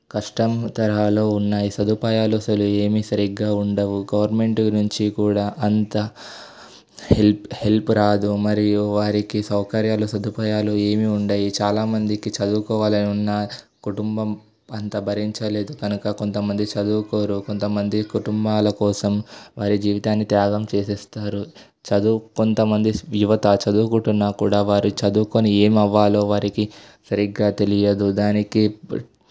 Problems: background sounds at intervals